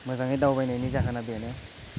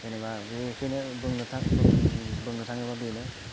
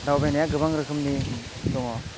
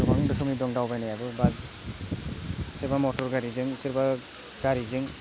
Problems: none marked